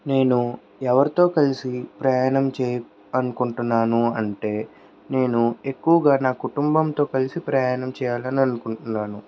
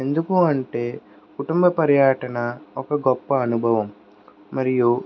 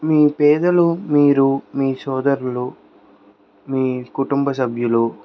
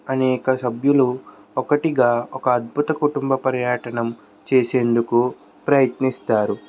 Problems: none marked